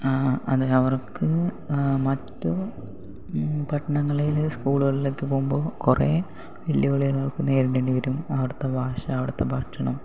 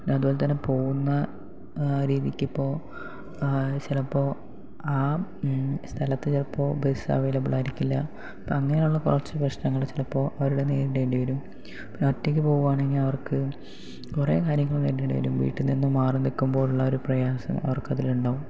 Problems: none marked